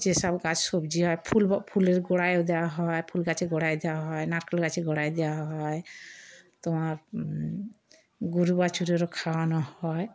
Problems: background sounds at intervals